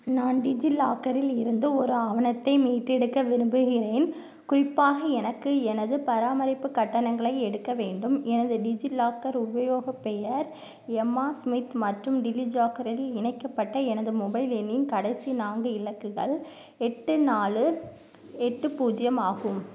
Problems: none marked